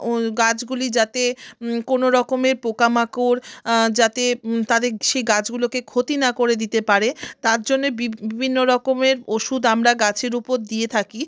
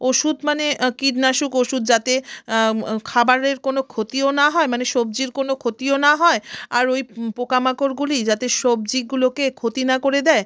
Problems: none marked